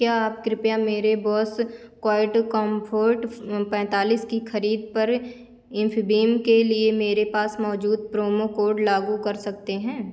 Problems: constant background noise